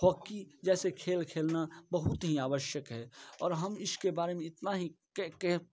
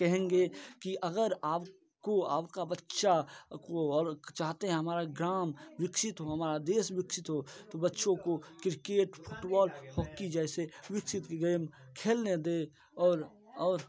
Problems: constant background noise, background conversations at intervals